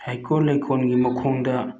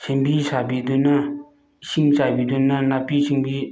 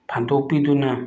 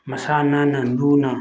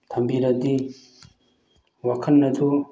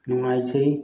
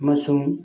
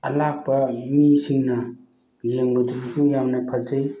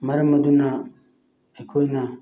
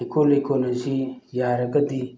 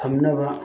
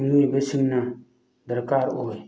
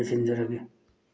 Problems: none marked